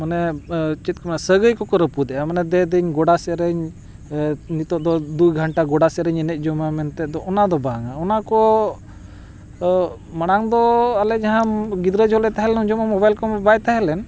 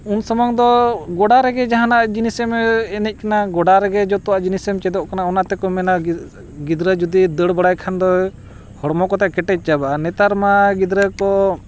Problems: constant background noise